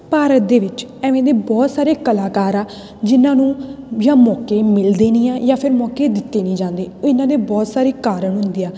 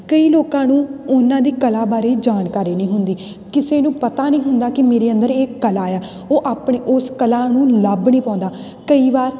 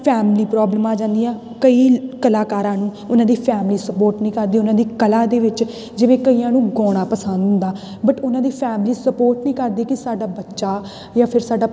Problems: none marked